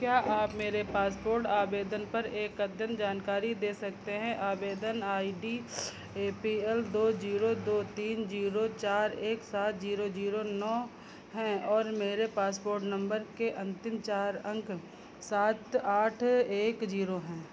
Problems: constant background noise, low volume